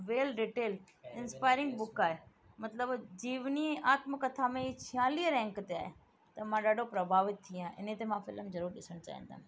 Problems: constant background noise